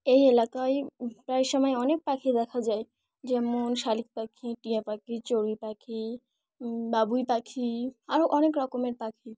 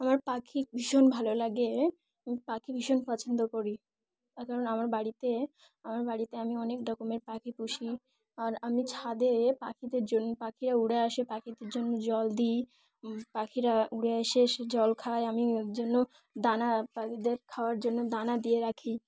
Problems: none marked